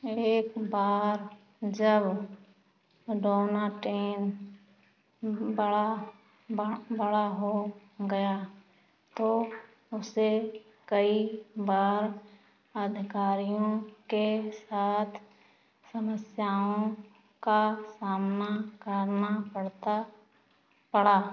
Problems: background sounds at intervals